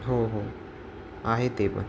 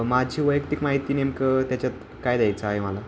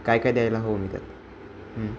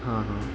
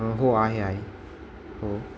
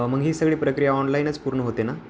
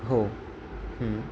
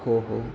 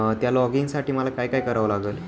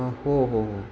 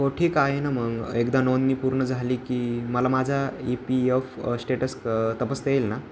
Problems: none marked